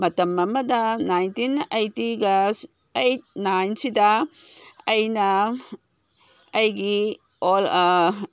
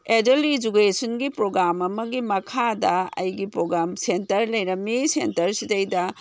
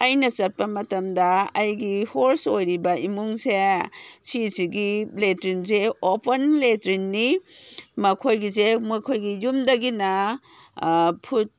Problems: none marked